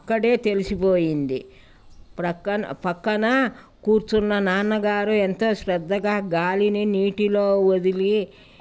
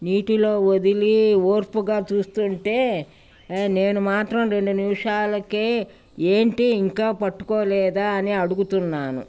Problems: none marked